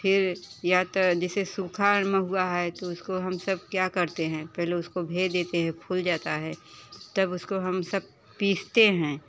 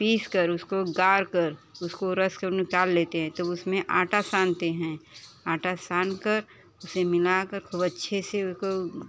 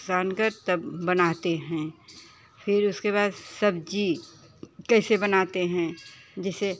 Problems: constant background noise, background conversations at intervals